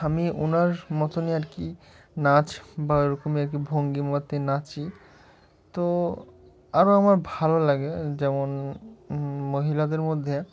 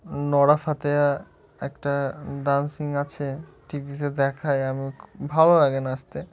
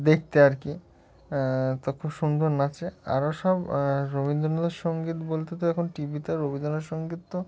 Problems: none marked